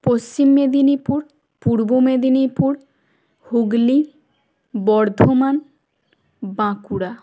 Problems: none marked